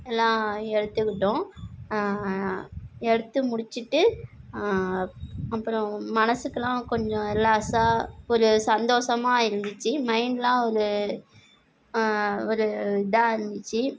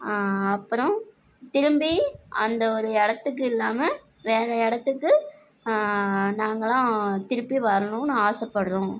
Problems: none marked